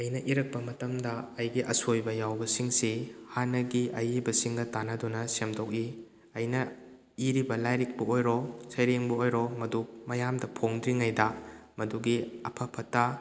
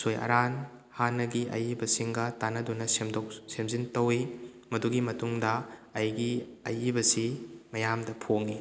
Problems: none marked